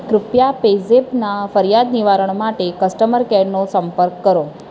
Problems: none marked